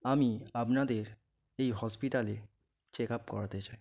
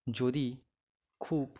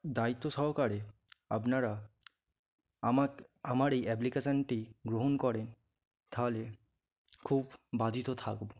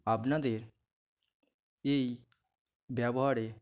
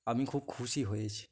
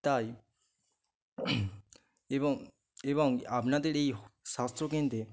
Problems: background sounds at intervals